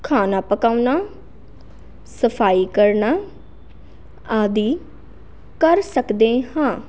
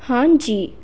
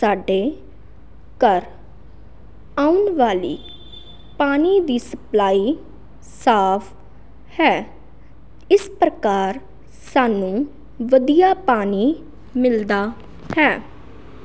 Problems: none marked